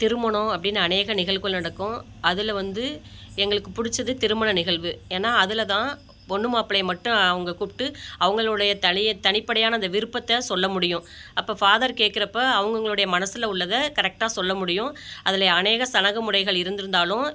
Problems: background sounds at intervals